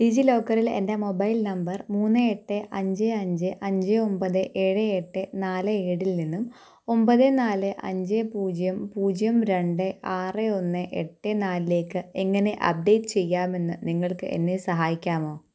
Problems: none marked